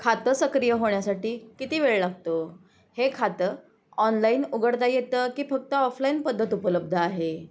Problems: none marked